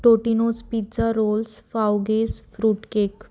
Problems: none marked